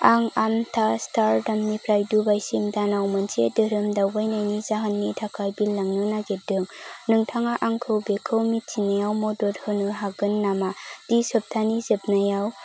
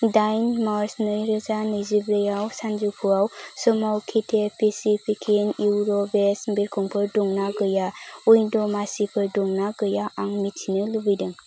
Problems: constant background noise